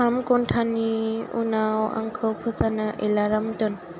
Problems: constant background noise